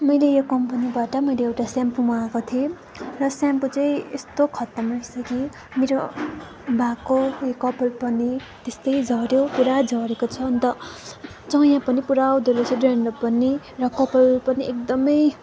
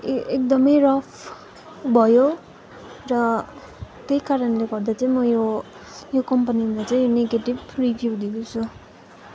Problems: constant background noise, continuous background conversations